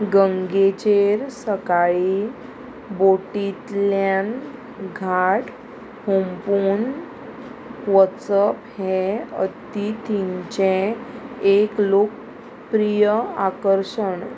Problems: constant background noise